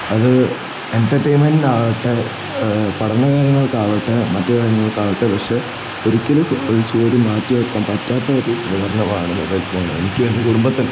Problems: constant background noise